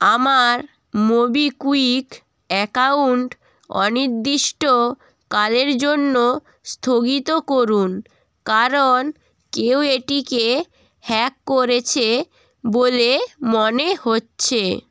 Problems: none marked